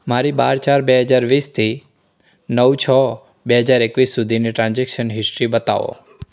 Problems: none marked